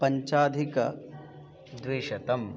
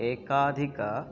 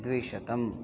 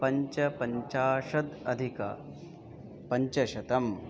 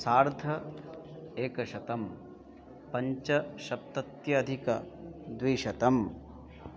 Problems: constant background noise, continuous background conversations